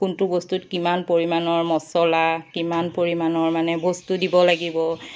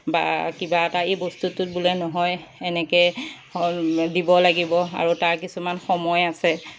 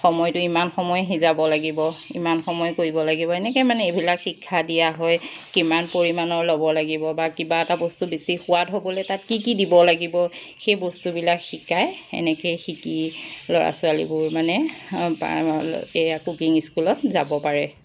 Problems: background sounds at intervals